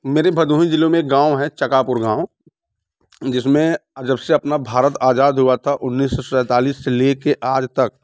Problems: none marked